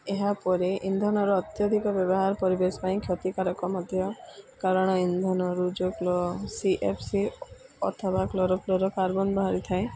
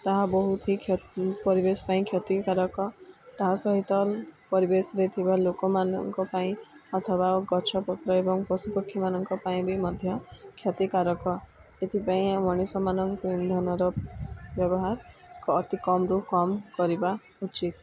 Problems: none marked